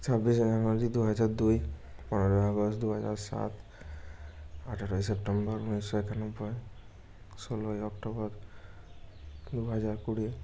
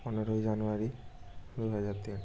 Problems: background sounds at intervals